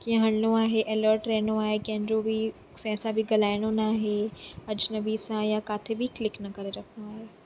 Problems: constant background noise